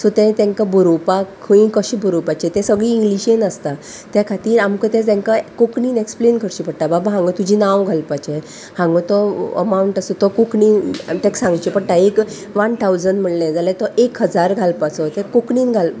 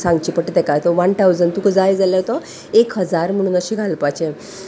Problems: constant background noise, background conversations at intervals